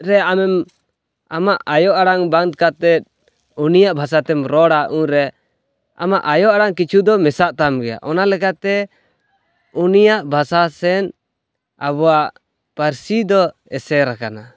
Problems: background sounds at intervals